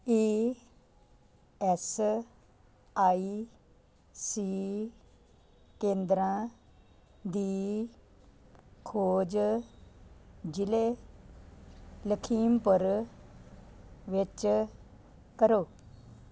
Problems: none marked